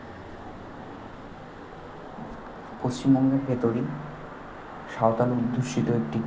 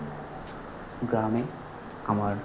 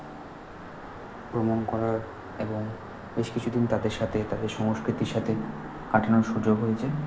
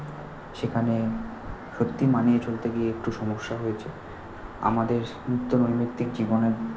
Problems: constant background noise